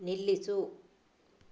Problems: none marked